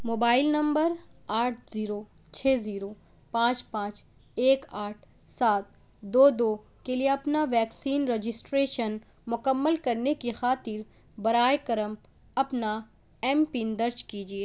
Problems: none marked